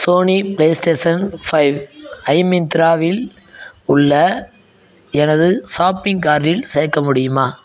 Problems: background sounds at intervals